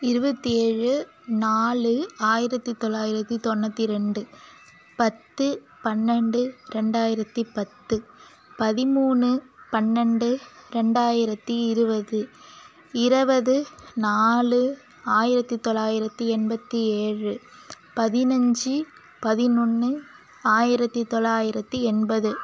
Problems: background sounds at intervals